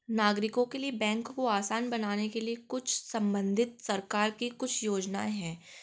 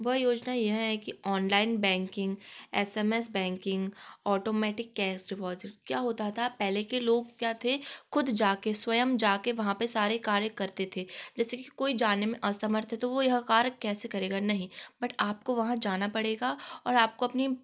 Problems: constant background noise